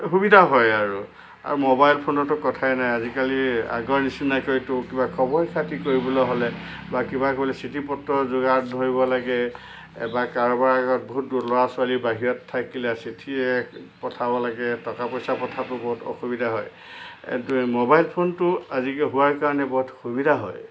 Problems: constant background noise